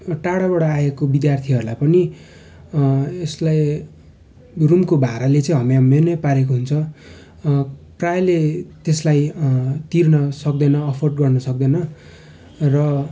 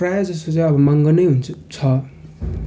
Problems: none marked